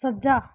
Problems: background sounds at intervals